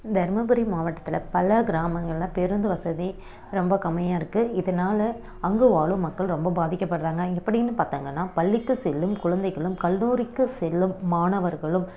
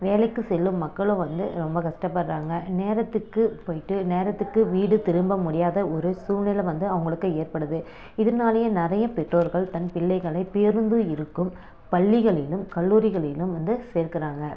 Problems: background sounds at intervals